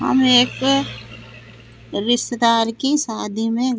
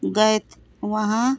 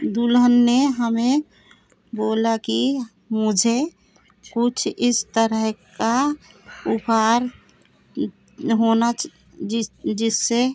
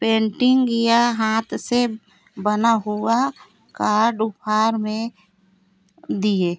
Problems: constant background noise, continuous background conversations